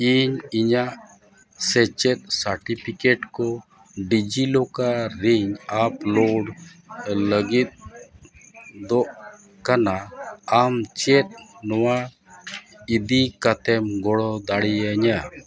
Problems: background sounds at intervals, continuous background conversations